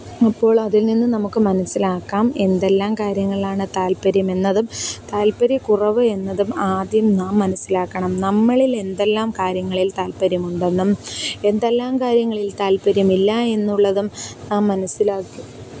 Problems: background sounds at intervals, continuous background conversations